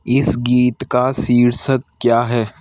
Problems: none marked